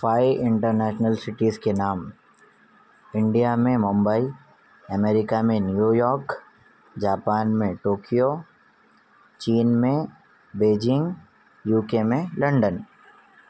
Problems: none marked